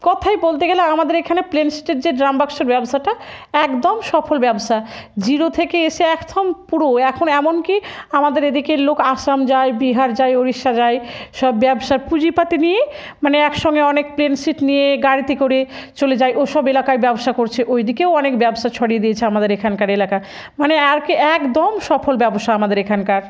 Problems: none marked